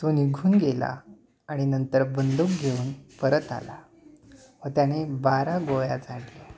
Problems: none marked